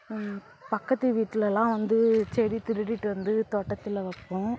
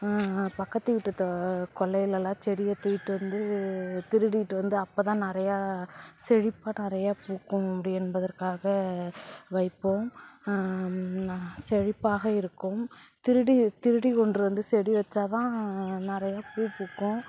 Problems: background sounds at intervals, background conversations at intervals